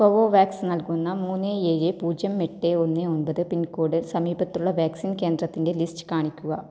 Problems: low volume